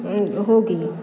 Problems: background conversations at intervals